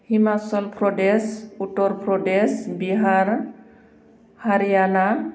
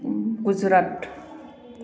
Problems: constant background noise